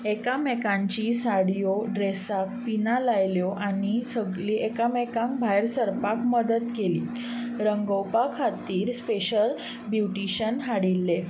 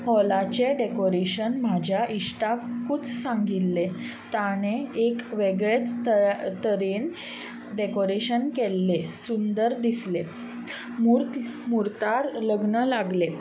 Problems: none marked